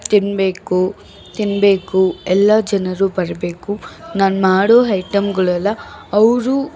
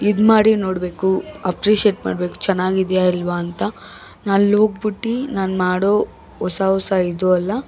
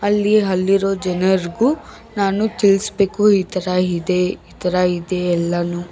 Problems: background sounds at intervals, background conversations at intervals